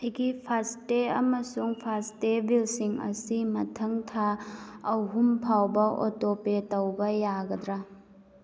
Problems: none marked